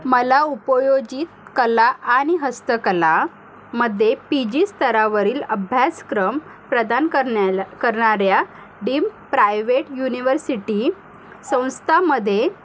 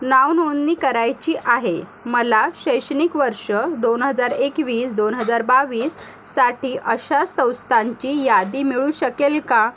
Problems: none marked